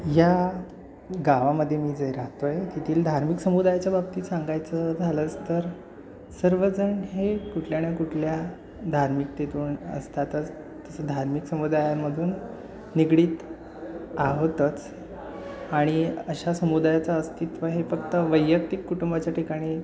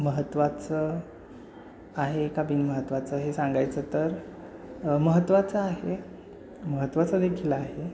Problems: constant background noise